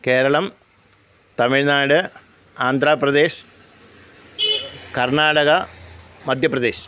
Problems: background sounds at intervals